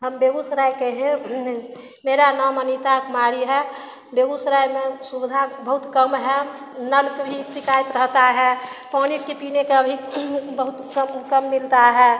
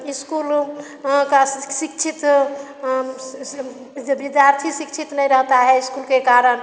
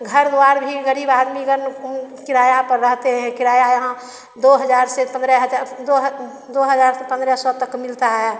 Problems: constant background noise, echo